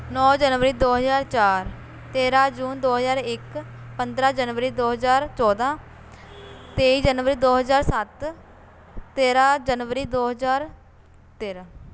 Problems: constant background noise